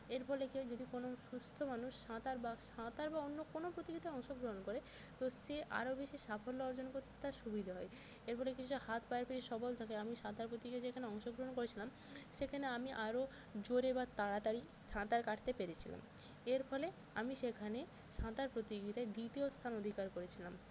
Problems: constant background noise